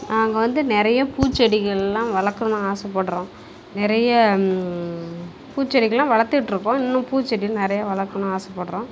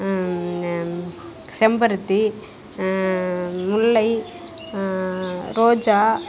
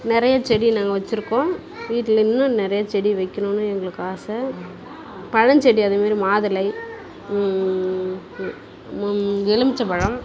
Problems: constant background noise